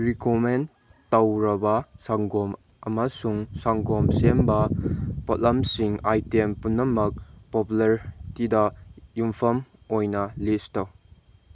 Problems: background sounds at intervals